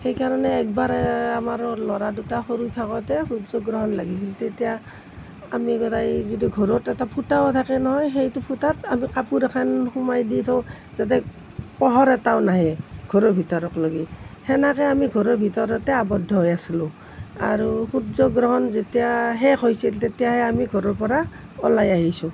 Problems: none marked